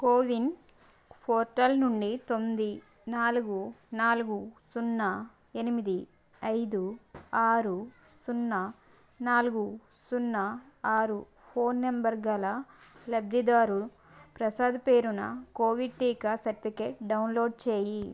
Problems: constant background noise